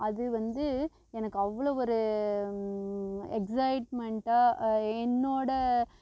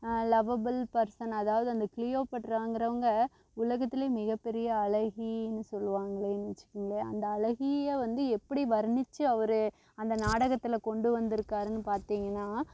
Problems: constant background noise